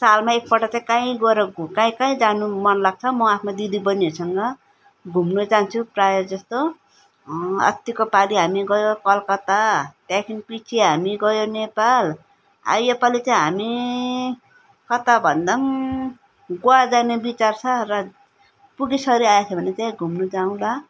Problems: none marked